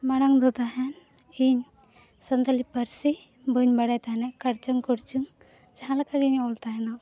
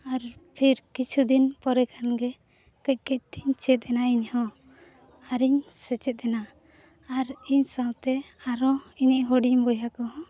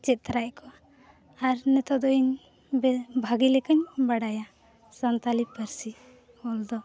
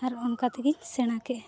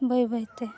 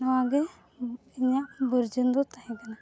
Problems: none marked